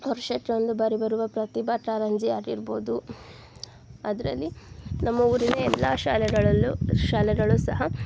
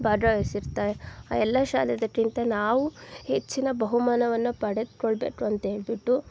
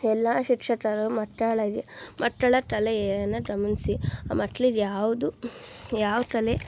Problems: none marked